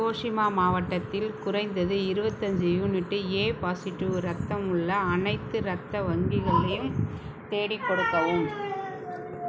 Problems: background sounds at intervals